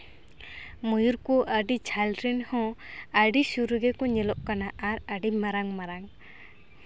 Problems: background sounds at intervals